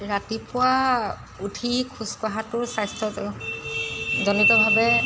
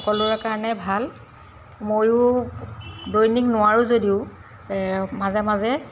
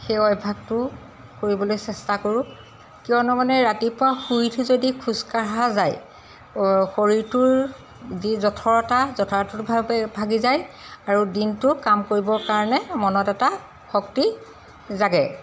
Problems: constant background noise